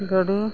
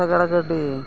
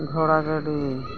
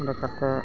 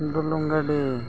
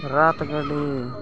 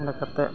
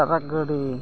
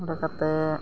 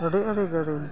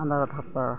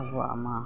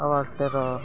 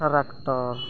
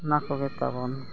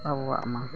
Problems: constant background noise, continuous background conversations